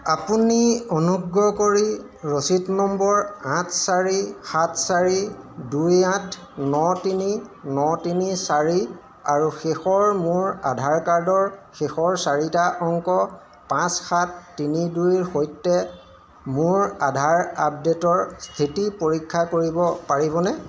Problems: constant background noise, background conversations at intervals